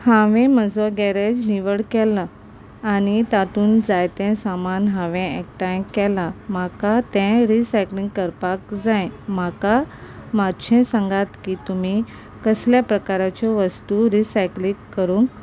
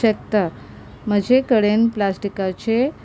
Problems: none marked